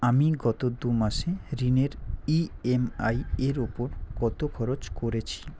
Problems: none marked